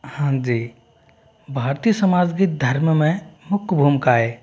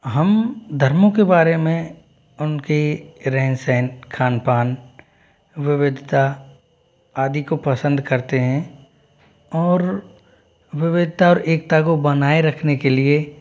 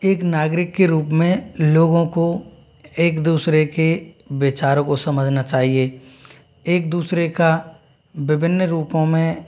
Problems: none marked